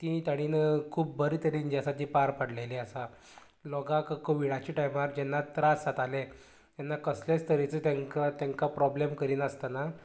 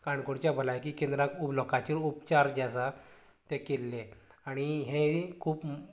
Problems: constant background noise, continuous background conversations